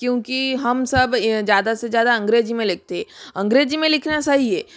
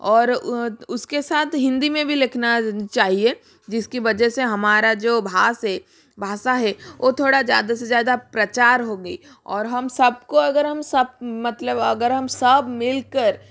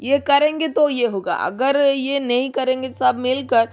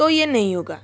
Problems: background sounds at intervals